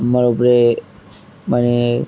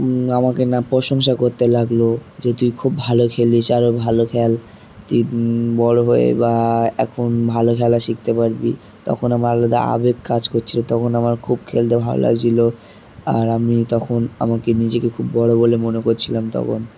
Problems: background sounds at intervals